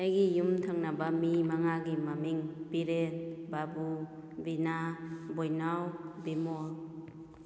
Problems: echo